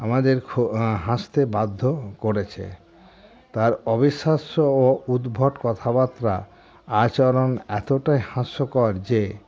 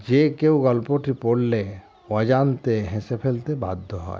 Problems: constant background noise